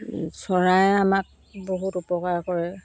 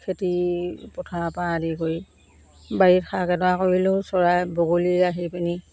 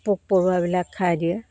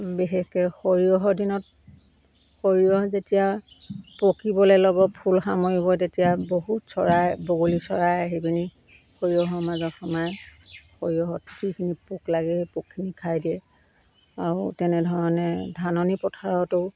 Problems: constant background noise